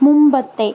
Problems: none marked